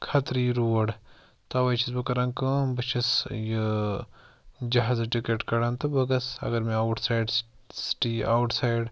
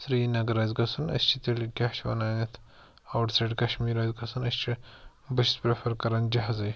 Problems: background sounds at intervals